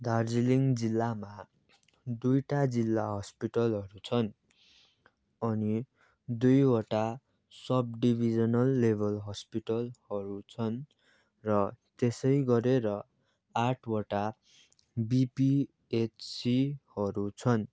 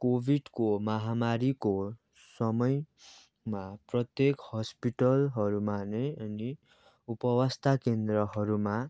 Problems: background sounds at intervals